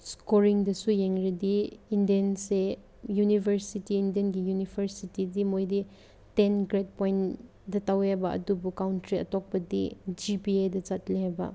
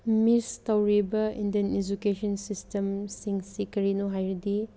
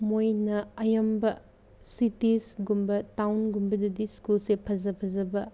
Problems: none marked